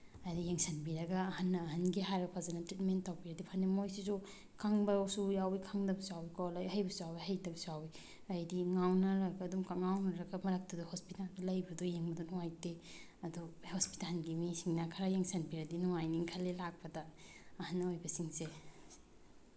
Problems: none marked